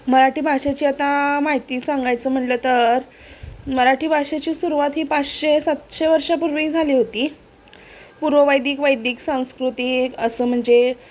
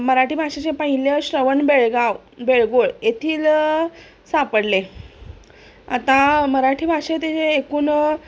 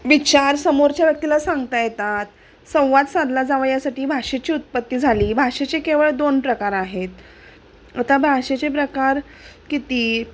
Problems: constant background noise, background conversations at intervals